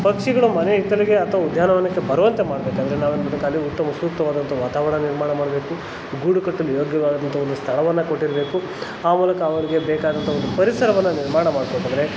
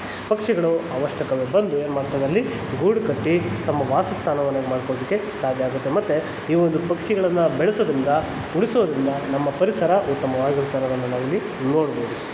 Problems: constant background noise